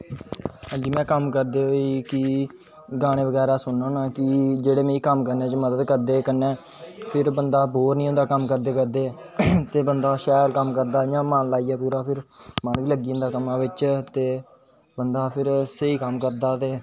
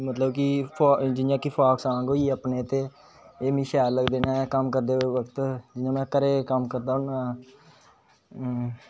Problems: constant background noise